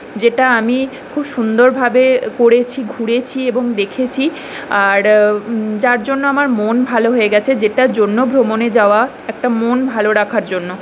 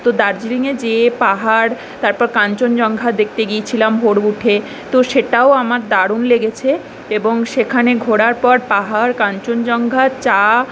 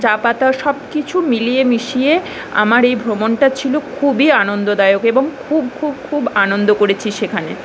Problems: background sounds at intervals